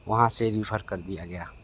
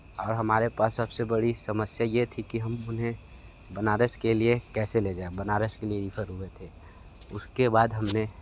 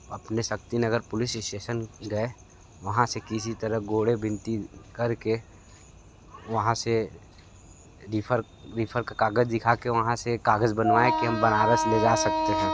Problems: constant background noise